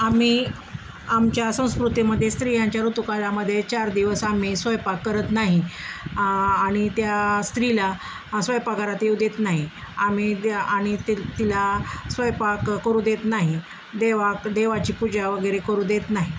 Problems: constant background noise